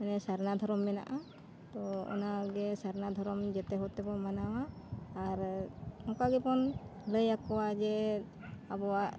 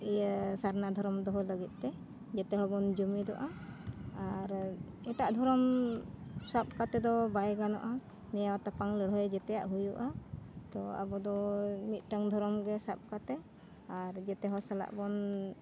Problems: constant background noise